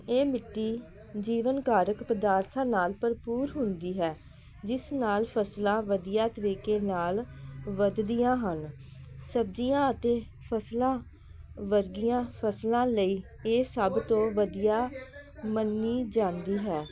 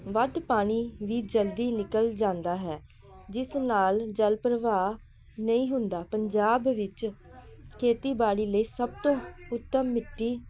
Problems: none marked